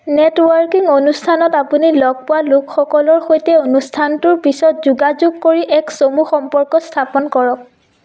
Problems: echo